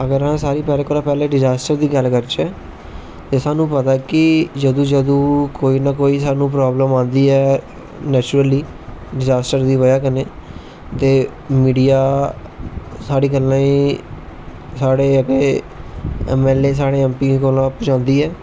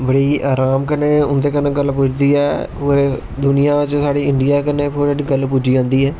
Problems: constant background noise